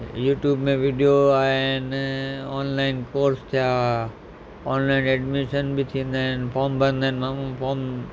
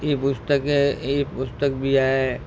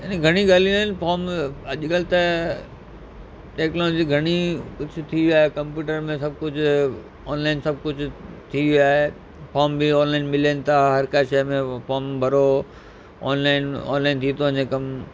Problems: constant background noise